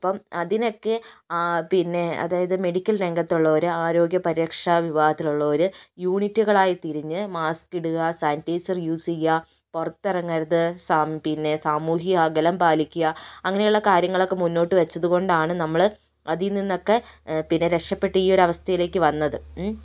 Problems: none marked